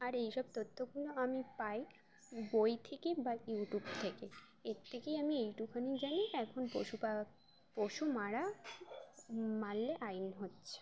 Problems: constant background noise